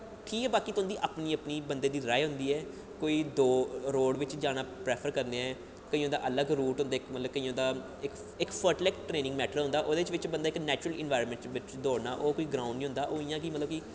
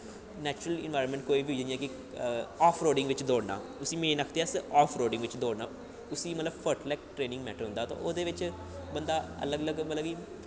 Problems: low volume